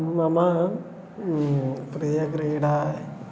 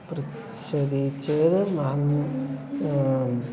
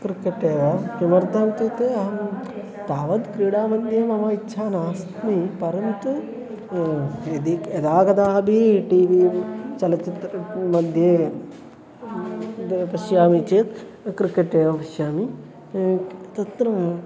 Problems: constant background noise, continuous background conversations